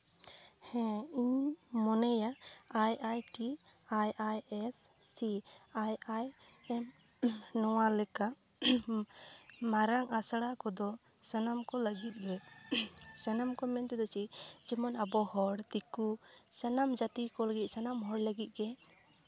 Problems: none marked